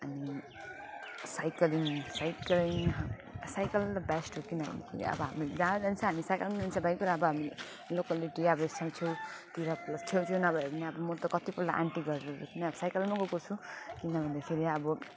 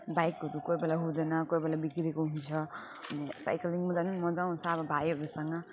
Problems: constant background noise, continuous background conversations, low volume